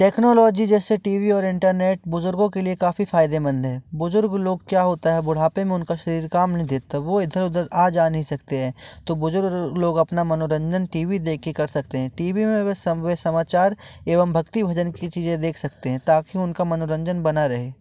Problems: none marked